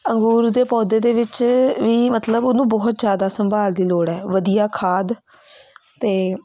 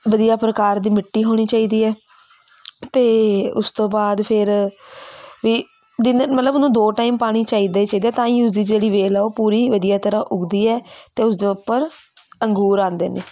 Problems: constant background noise, continuous background conversations